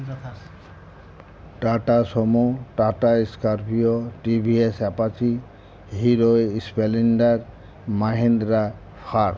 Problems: constant background noise